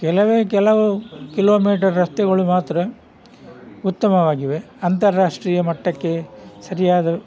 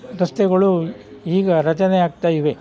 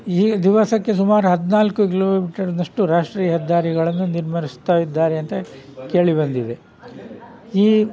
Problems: background sounds at intervals